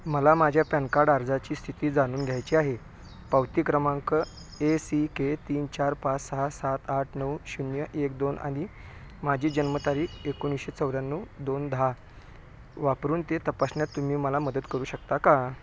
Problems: background sounds at intervals